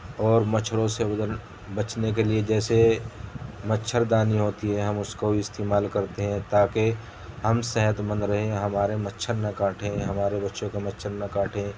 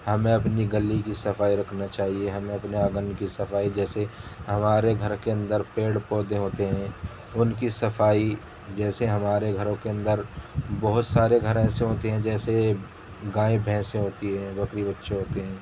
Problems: constant background noise